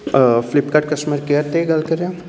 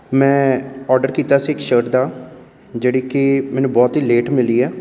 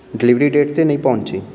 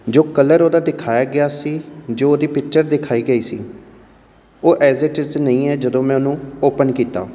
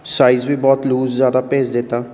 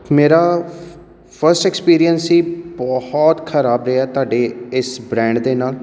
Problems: background sounds at intervals